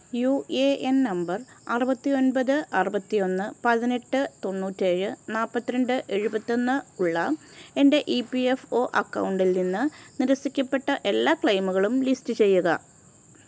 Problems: constant background noise